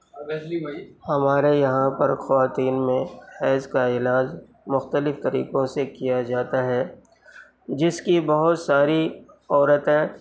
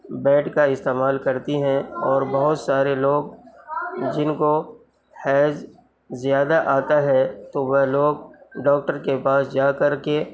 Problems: background sounds at intervals